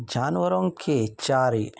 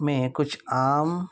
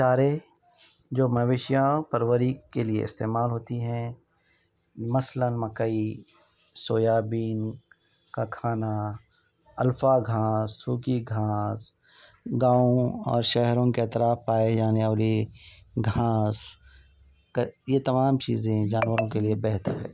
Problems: background conversations at intervals